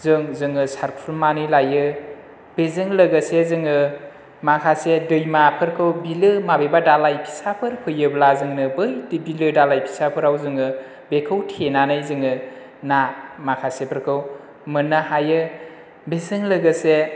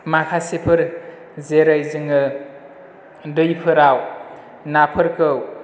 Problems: none marked